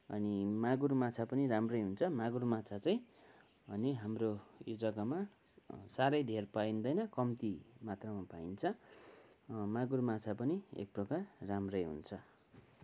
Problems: constant background noise